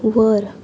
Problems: constant background noise, continuous background conversations